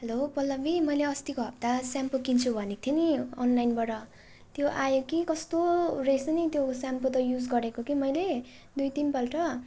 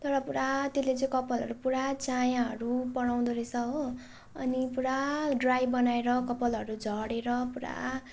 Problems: none marked